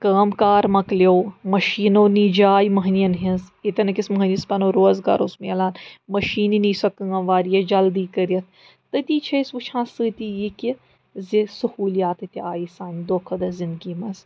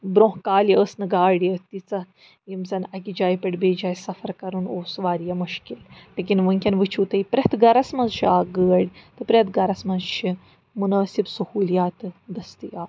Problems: background sounds at intervals